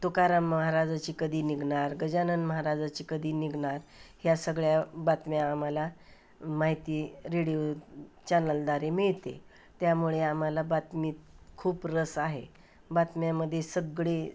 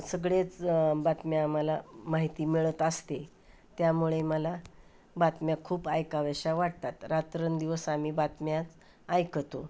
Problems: background sounds at intervals